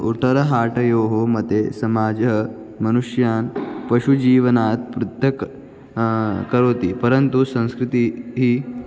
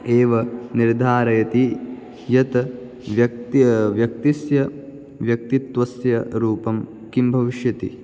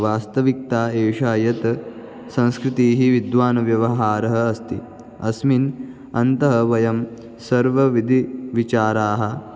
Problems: none marked